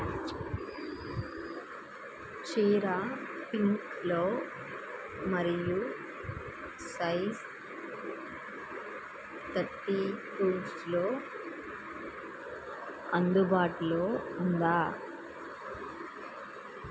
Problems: constant background noise